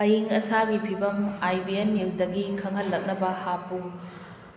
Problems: constant background noise